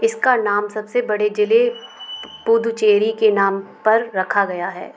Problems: constant background noise